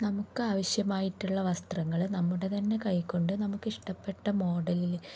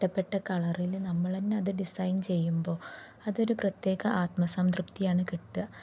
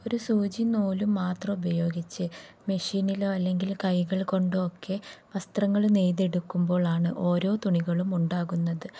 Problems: low volume